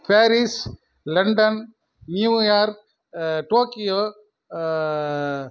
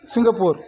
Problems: none marked